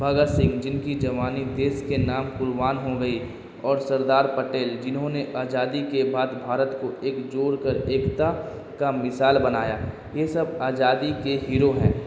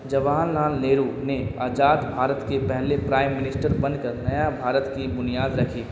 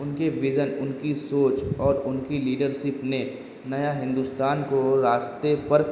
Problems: constant background noise